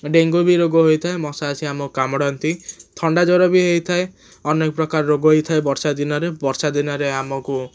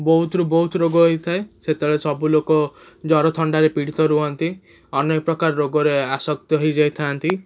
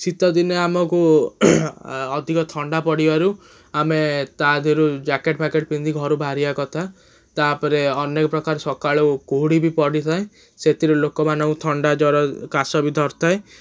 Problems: none marked